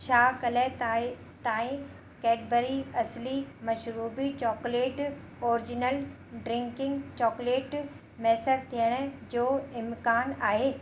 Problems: constant background noise, echo